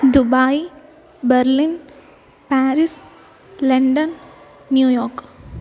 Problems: background sounds at intervals